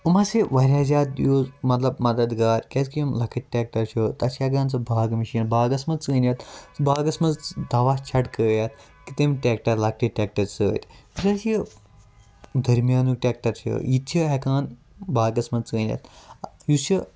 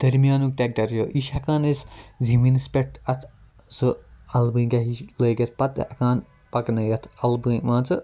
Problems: background sounds at intervals